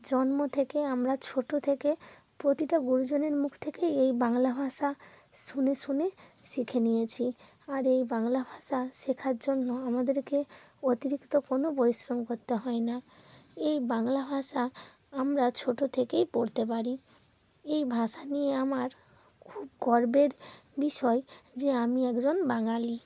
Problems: none marked